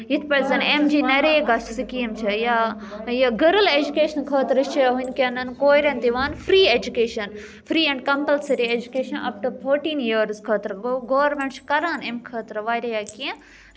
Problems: background conversations at intervals